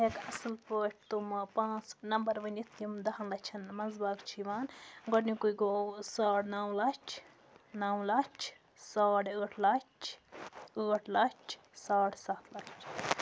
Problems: background sounds at intervals